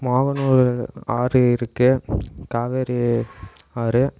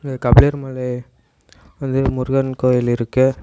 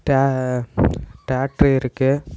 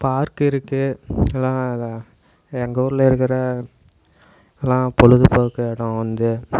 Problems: constant background noise